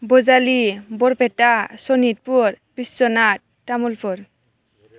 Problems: constant background noise